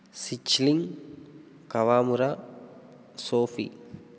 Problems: none marked